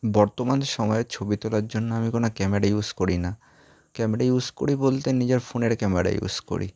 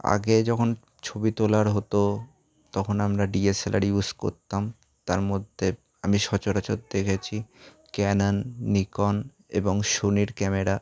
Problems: background sounds at intervals